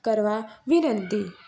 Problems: none marked